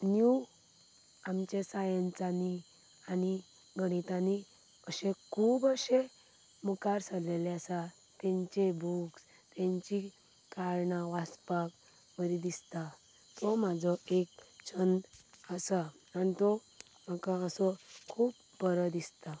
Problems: none marked